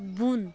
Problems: none marked